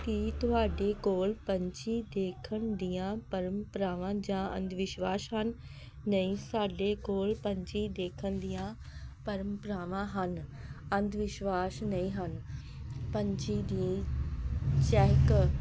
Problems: none marked